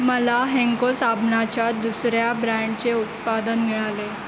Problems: constant background noise